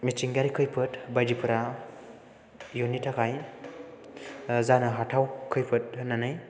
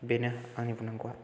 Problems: background sounds at intervals